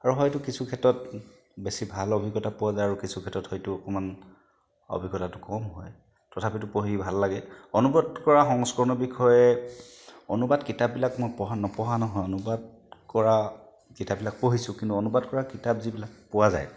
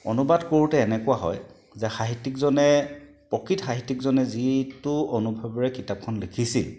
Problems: none marked